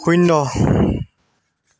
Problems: background sounds at intervals